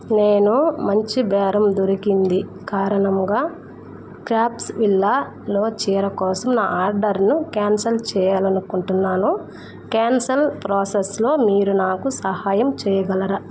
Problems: none marked